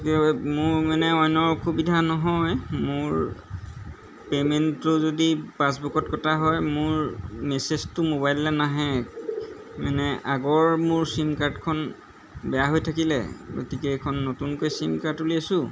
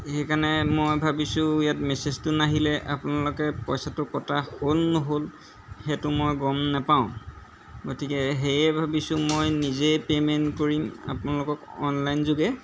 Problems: background sounds at intervals